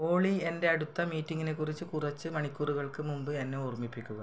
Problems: low volume